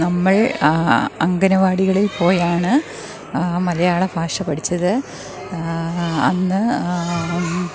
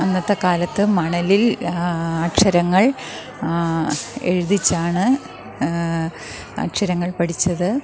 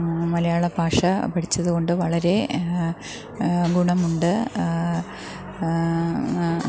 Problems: background sounds at intervals